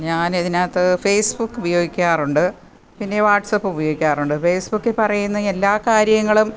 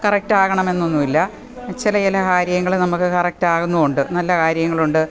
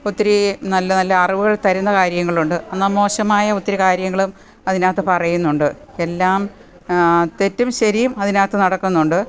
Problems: none marked